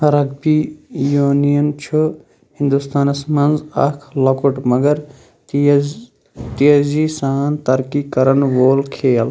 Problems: none marked